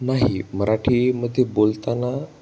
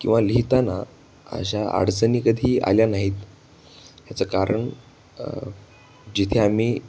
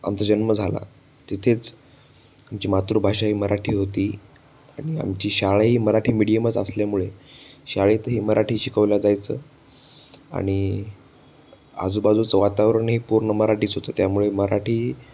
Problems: none marked